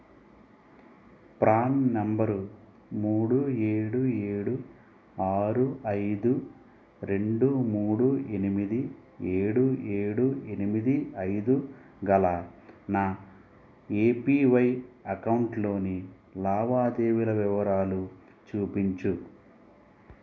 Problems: low volume